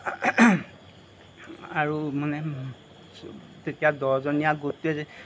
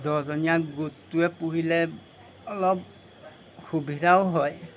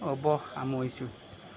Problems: background sounds at intervals